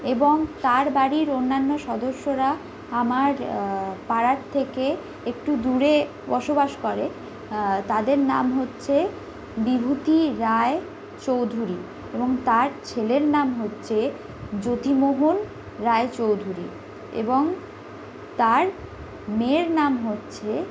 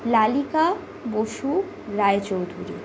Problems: background sounds at intervals